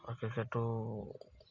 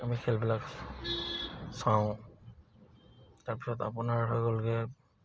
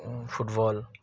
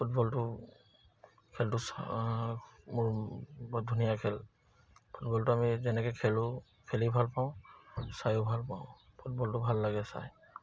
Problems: none marked